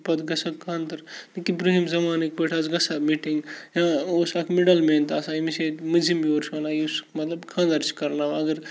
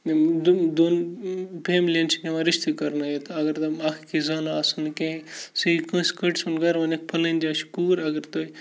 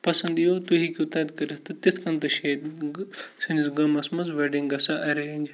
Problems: constant background noise, low volume